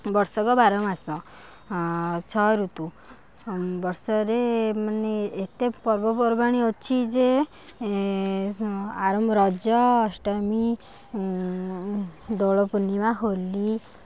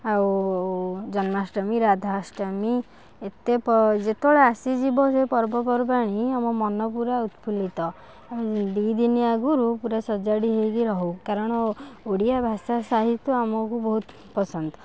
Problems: background conversations at intervals